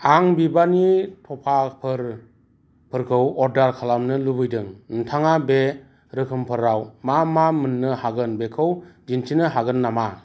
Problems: constant background noise